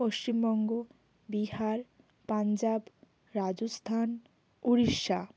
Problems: constant background noise